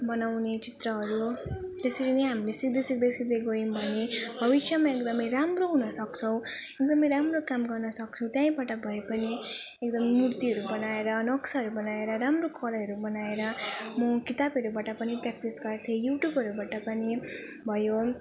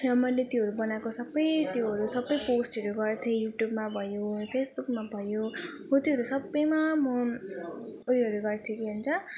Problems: none marked